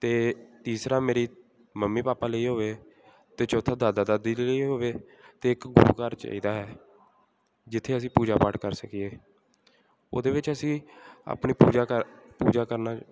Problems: background sounds at intervals, background conversations at intervals